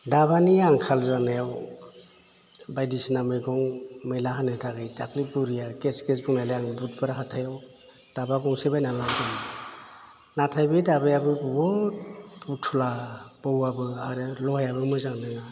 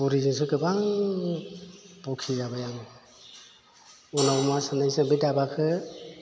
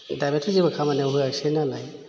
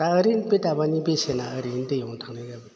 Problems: low volume